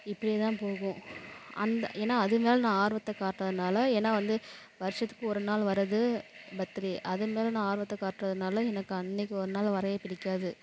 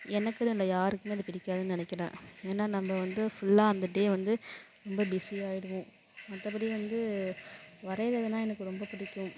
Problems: background sounds at intervals